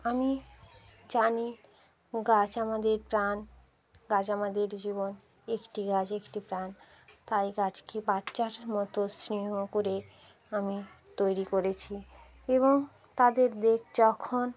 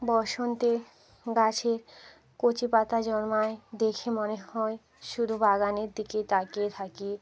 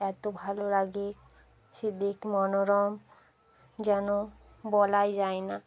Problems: constant background noise